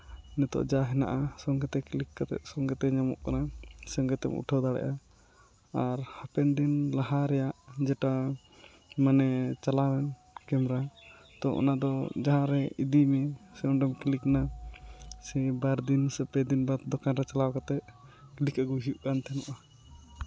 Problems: background sounds at intervals